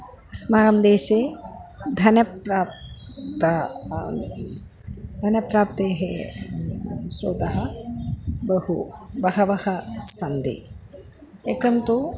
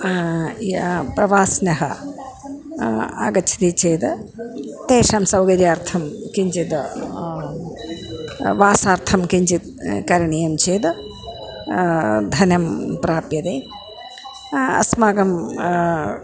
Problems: background sounds at intervals, background conversations at intervals